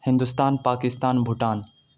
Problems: background sounds at intervals